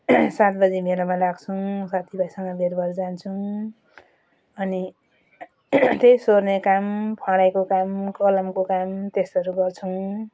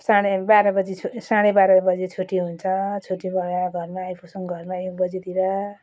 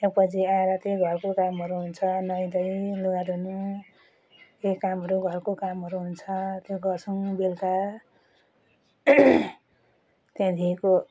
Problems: none marked